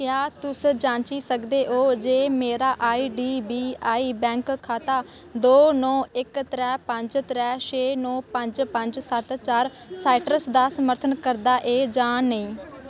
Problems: constant background noise